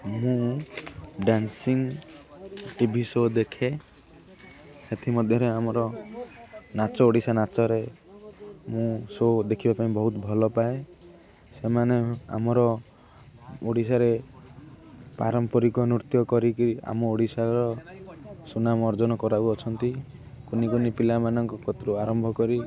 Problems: constant background noise, continuous background conversations